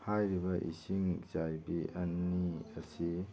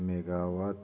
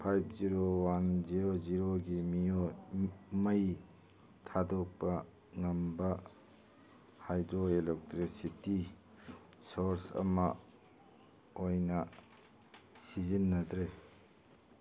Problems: background conversations at intervals